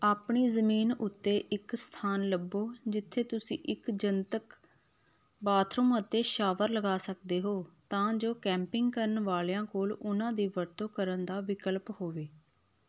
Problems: none marked